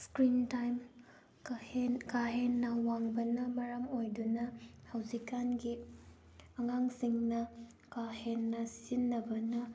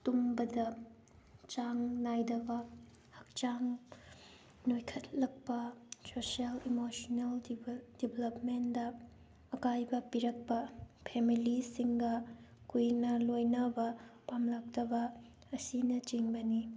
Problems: background sounds at intervals